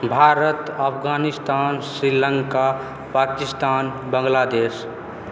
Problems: background sounds at intervals